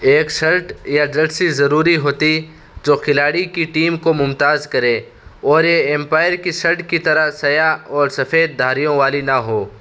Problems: constant background noise